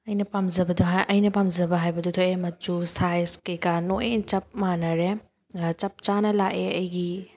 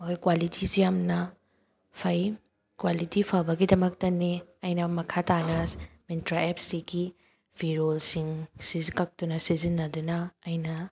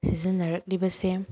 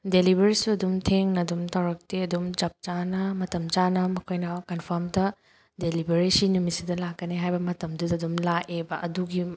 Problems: none marked